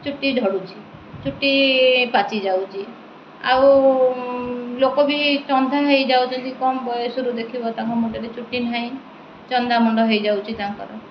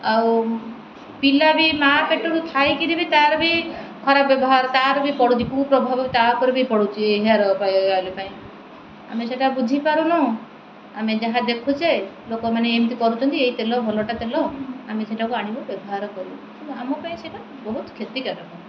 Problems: constant background noise